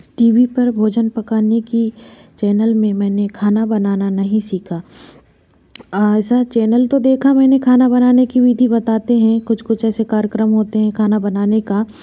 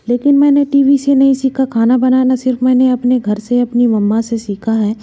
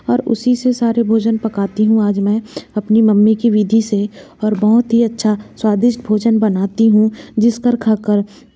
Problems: background sounds at intervals